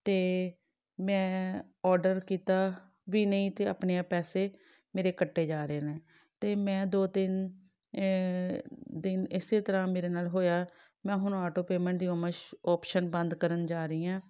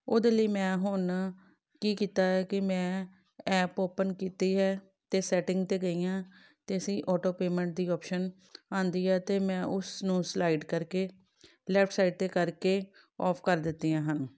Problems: none marked